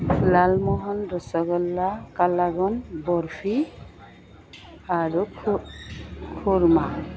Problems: none marked